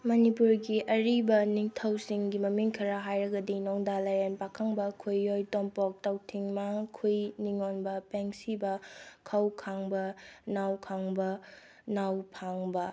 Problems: low volume